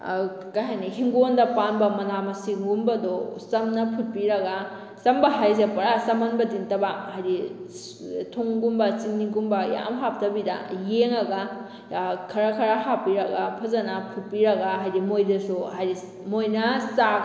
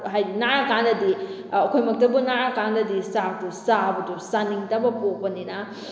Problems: none marked